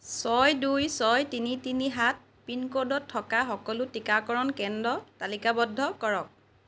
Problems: none marked